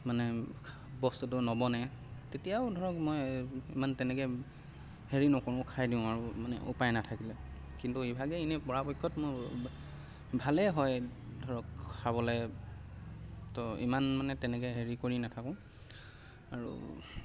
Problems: constant background noise